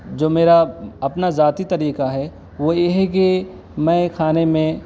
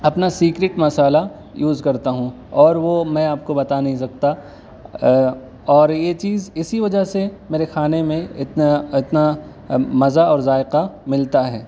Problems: background sounds at intervals, background conversations at intervals